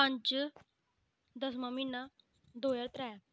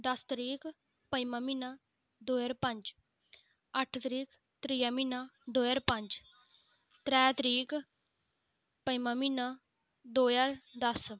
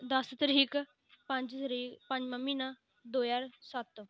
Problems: none marked